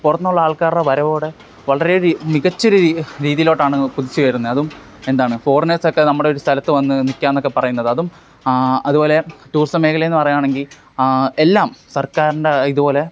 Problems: none marked